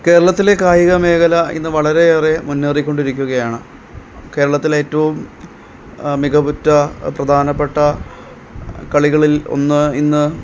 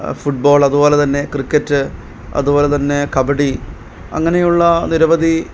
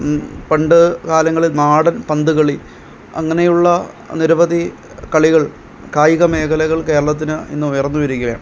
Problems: background sounds at intervals